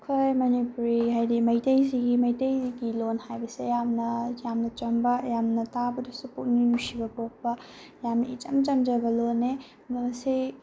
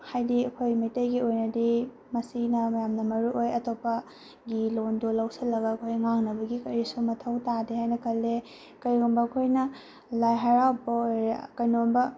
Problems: background sounds at intervals